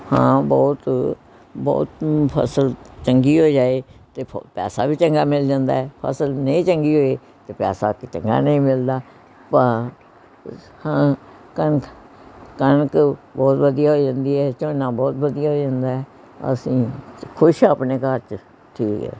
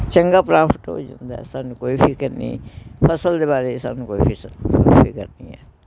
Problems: continuous background conversations